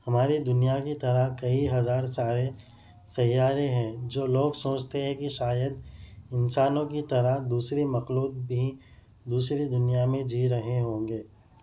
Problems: constant background noise